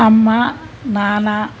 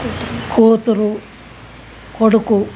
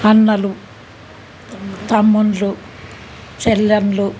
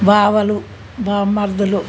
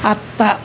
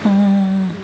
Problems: constant background noise